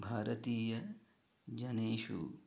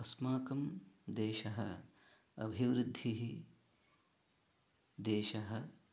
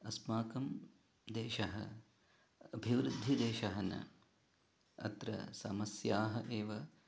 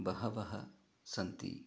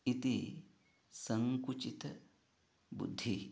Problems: low volume